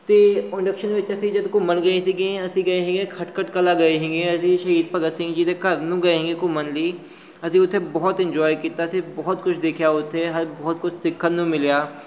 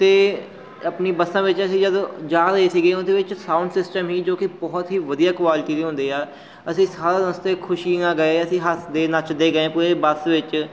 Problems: background sounds at intervals